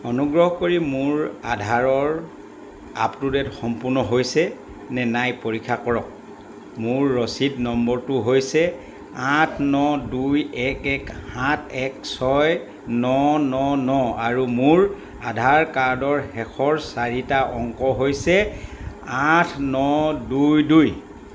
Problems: constant background noise, background conversations at intervals